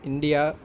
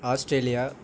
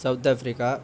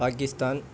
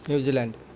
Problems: background sounds at intervals